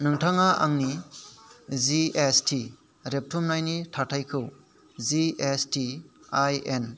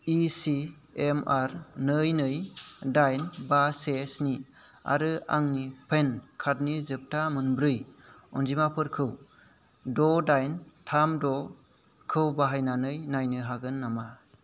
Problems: none marked